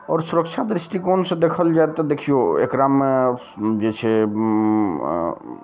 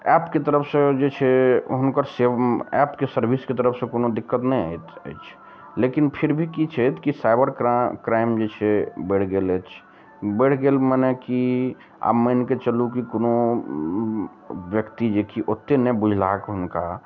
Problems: none marked